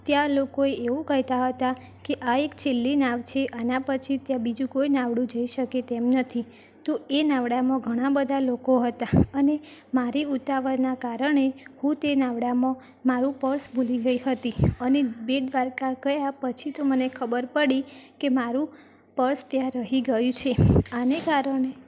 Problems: background sounds at intervals